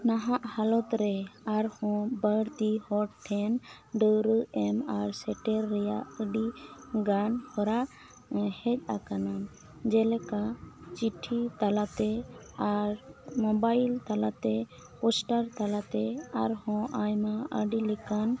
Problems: none marked